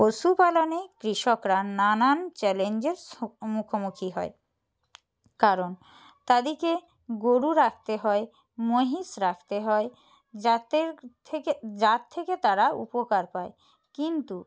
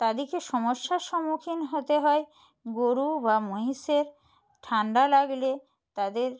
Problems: background conversations at intervals